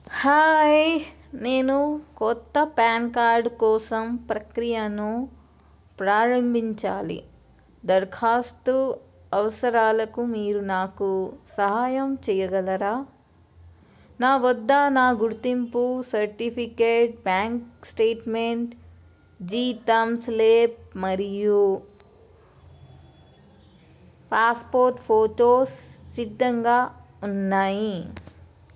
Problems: none marked